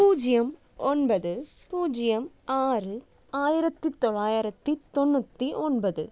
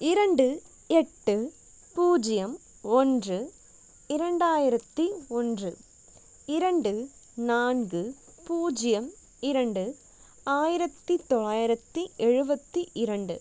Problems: none marked